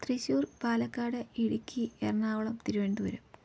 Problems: low volume